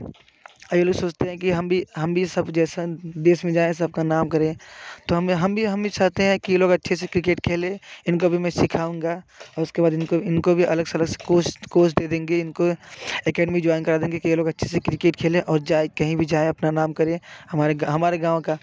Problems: constant background noise